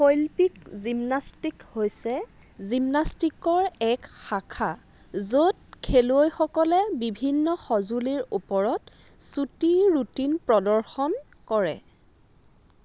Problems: constant background noise